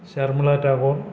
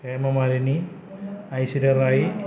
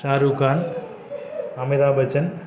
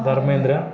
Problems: constant background noise